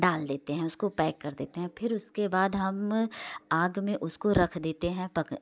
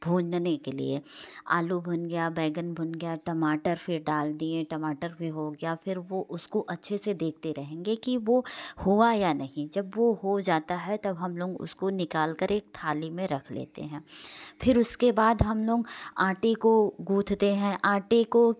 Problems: none marked